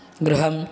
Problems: constant background noise